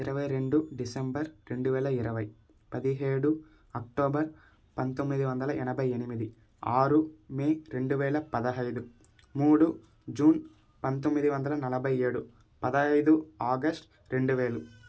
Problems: background sounds at intervals